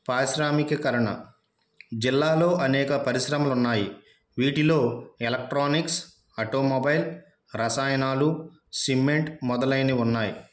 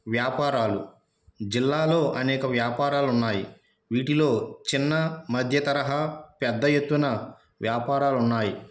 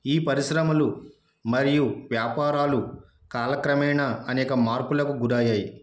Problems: none marked